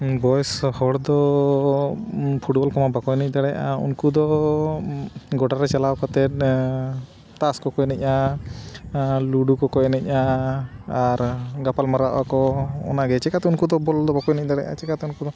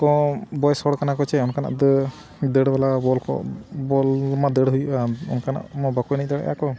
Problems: none marked